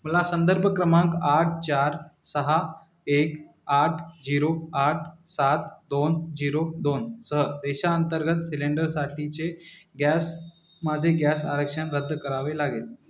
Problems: none marked